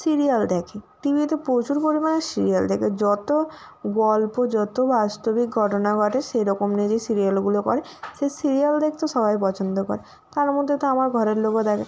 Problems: constant background noise